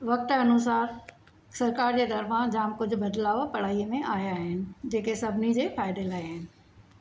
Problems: background sounds at intervals